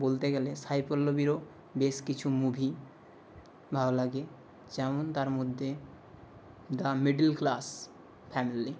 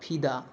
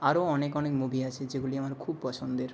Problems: none marked